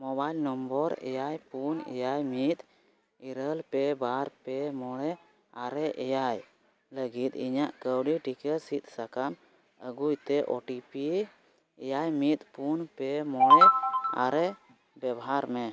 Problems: none marked